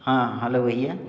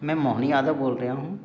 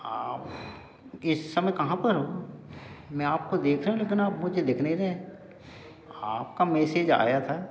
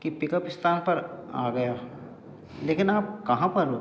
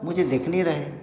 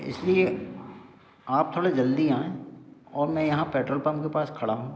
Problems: none marked